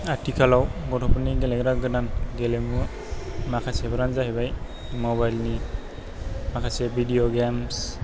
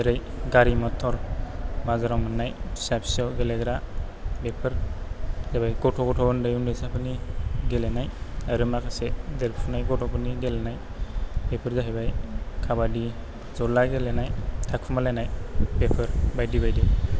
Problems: low volume